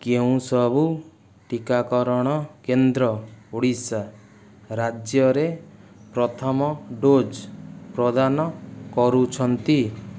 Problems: none marked